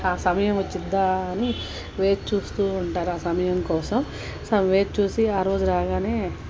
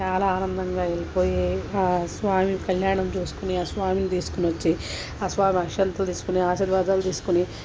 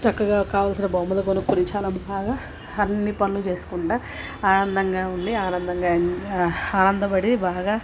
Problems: constant background noise, background conversations at intervals